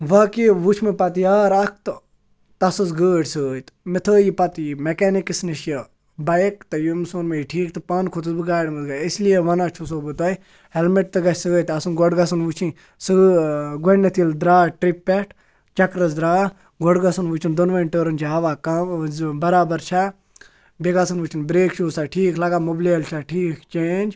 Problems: constant background noise